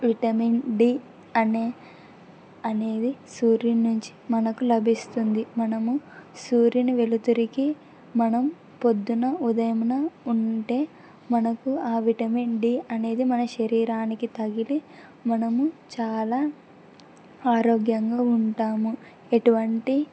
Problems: none marked